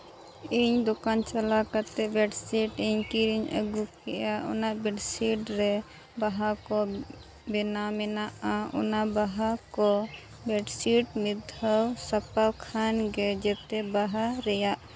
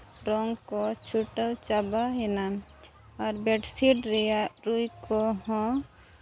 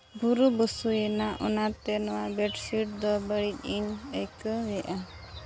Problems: none marked